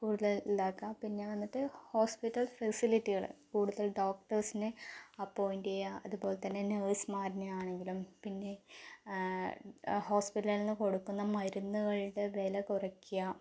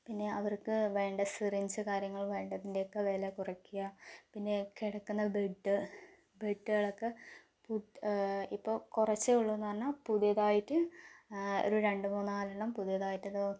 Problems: low volume